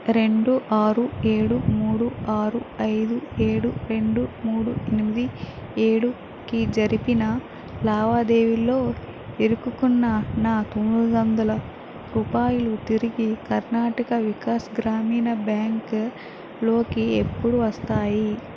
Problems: constant background noise